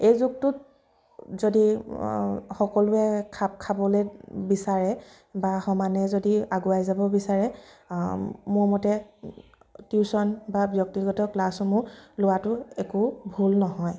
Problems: background sounds at intervals